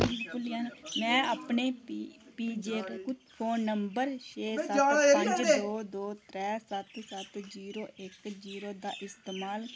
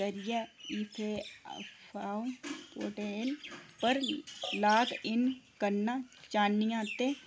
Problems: constant background noise, echo